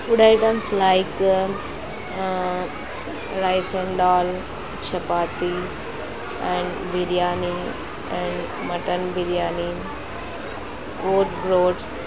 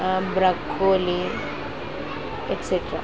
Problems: constant background noise